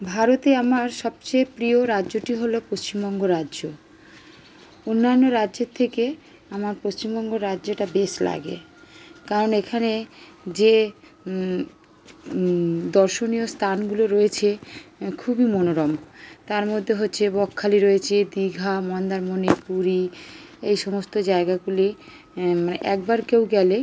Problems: none marked